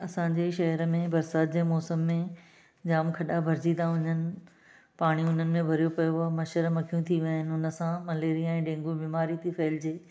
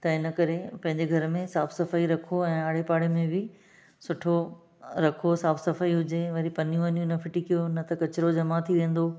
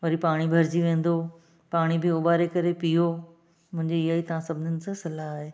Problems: none marked